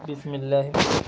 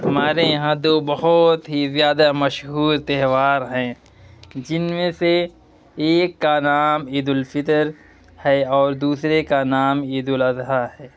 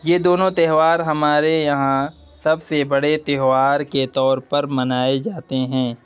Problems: none marked